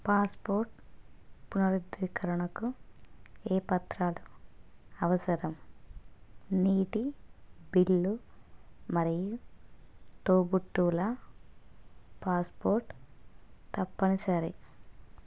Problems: constant background noise, low volume